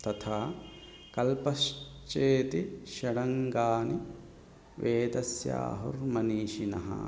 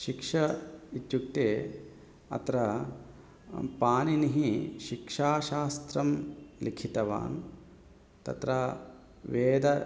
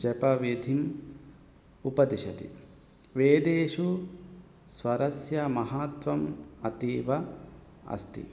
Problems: background sounds at intervals